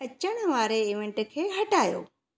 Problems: none marked